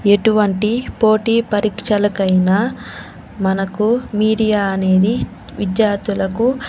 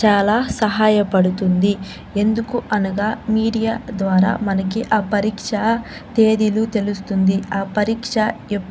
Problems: none marked